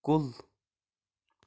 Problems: none marked